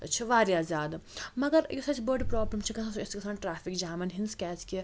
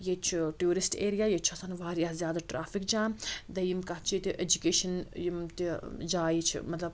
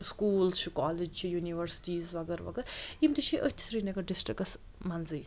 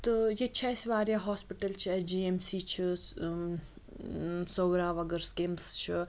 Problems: constant background noise